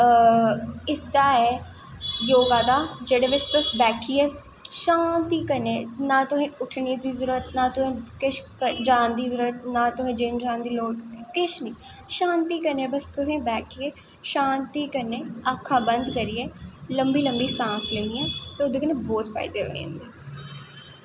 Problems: none marked